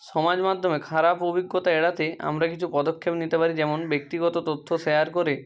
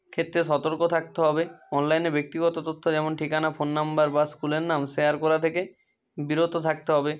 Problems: constant background noise, continuous background conversations